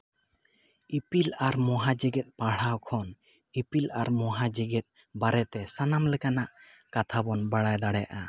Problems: constant background noise, echo